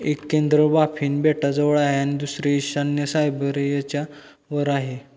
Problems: constant background noise